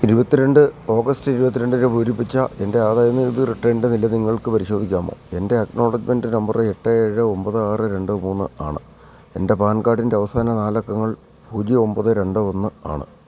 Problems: none marked